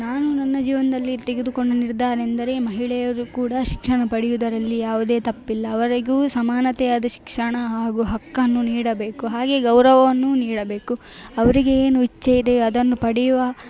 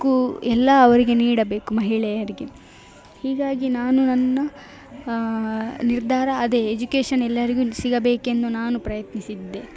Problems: none marked